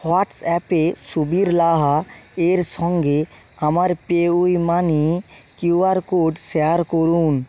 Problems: none marked